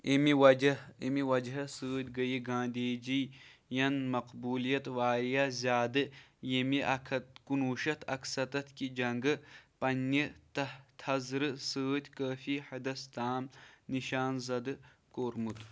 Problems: none marked